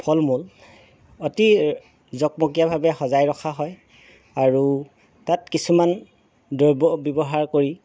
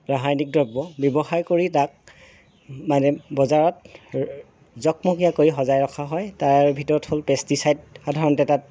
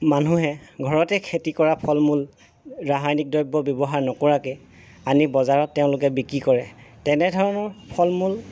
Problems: background sounds at intervals